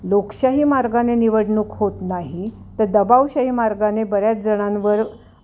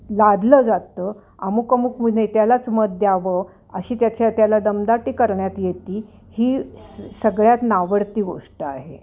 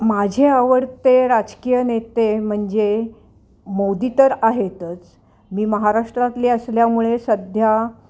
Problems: constant background noise, continuous background conversations